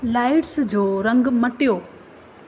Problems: constant background noise